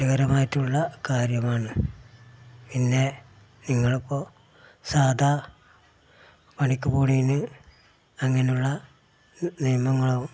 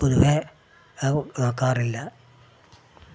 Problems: background sounds at intervals